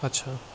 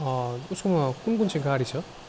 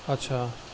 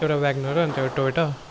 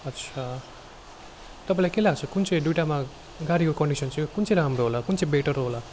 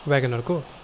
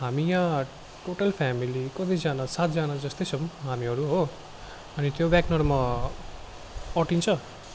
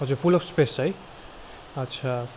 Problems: constant background noise